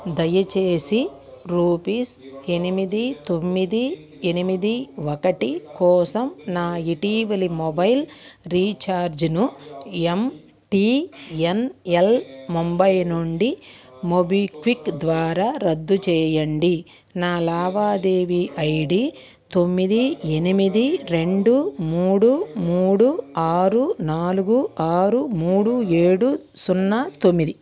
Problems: continuous background conversations